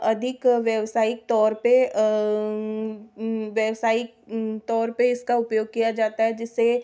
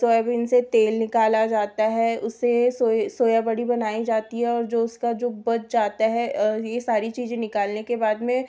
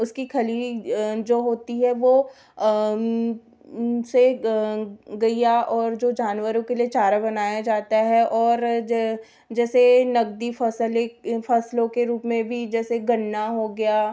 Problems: background sounds at intervals